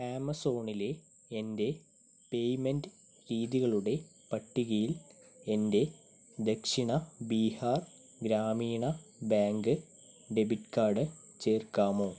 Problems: constant background noise, low volume